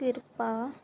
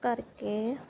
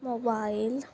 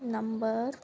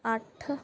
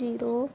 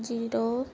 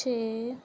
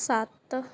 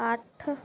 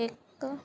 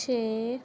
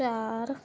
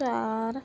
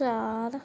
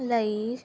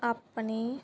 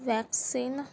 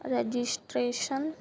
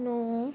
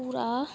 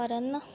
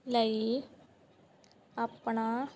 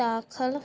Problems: background sounds at intervals